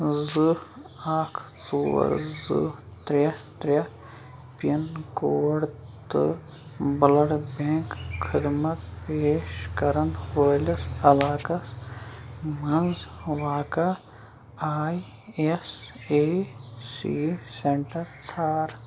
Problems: constant background noise